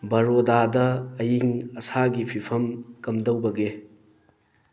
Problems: background sounds at intervals